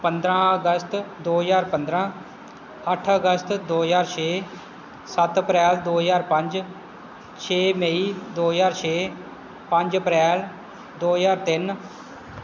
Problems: constant background noise